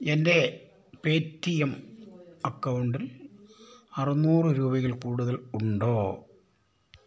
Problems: none marked